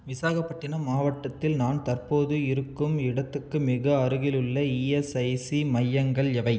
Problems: none marked